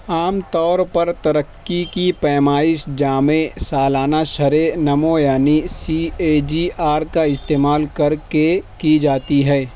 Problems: constant background noise